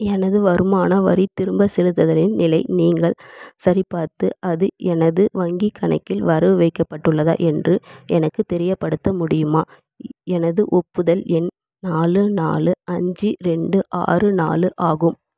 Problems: none marked